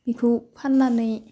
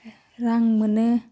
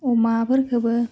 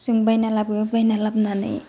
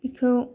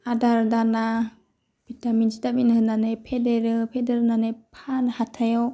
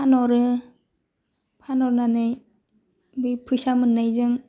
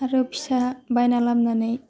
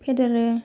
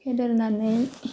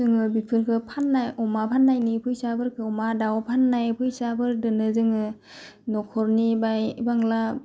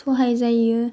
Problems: low volume